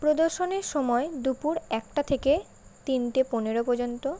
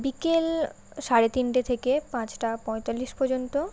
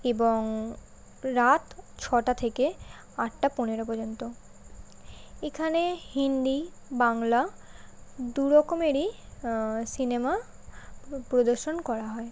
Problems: constant background noise